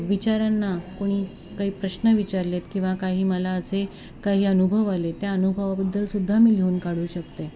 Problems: constant background noise, continuous background conversations